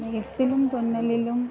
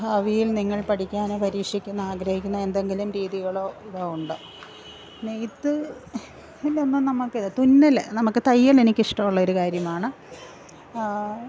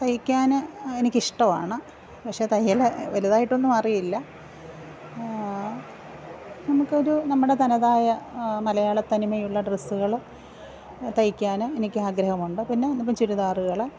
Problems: none marked